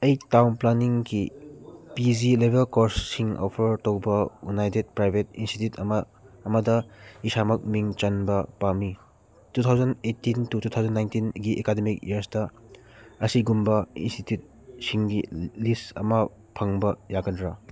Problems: none marked